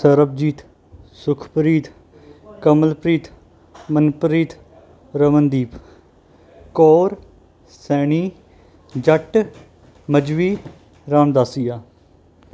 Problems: constant background noise